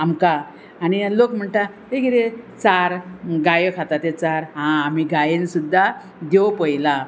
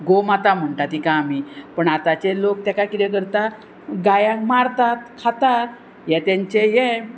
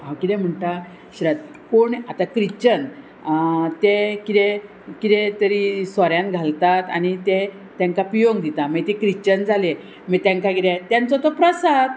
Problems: constant background noise